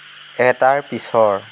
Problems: constant background noise